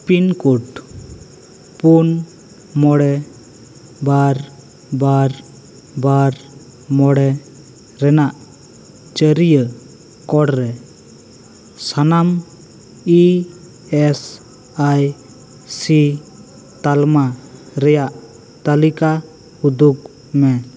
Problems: constant background noise